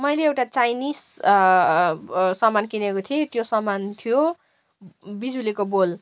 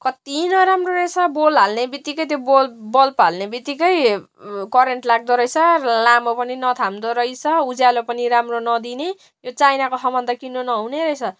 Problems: constant background noise